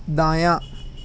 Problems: none marked